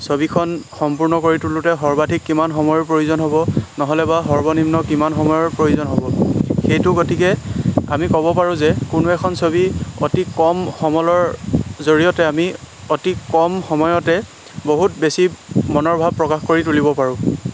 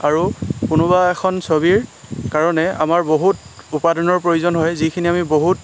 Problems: constant background noise